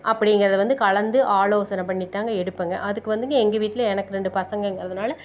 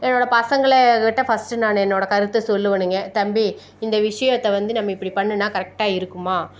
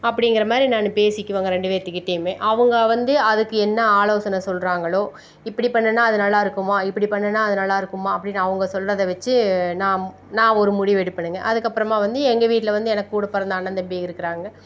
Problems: none marked